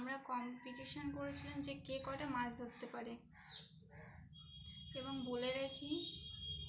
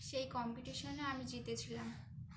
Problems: constant background noise